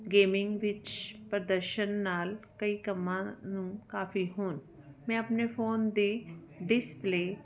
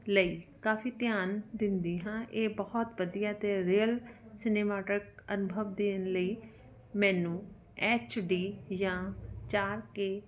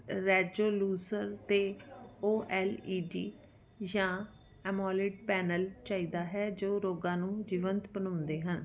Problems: background conversations at intervals